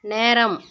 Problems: background sounds at intervals